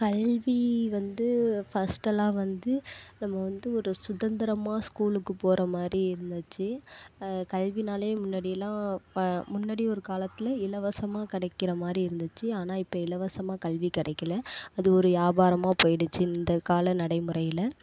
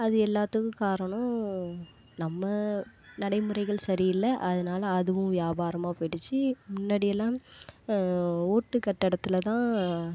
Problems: constant background noise